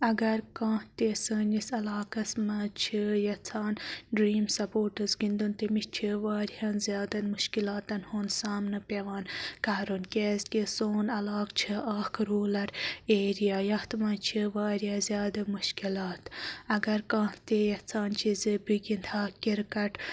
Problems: background sounds at intervals